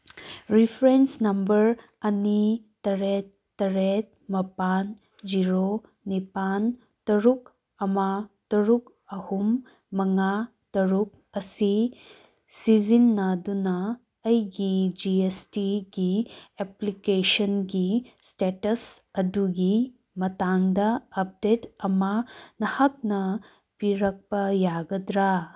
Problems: none marked